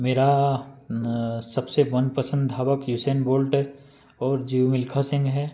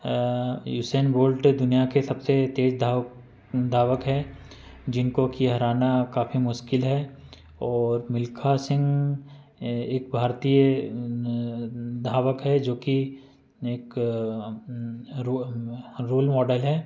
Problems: none marked